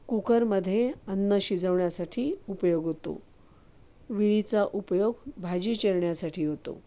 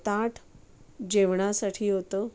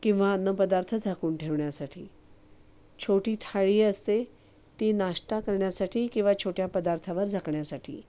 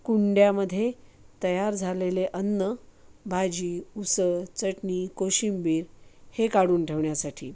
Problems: none marked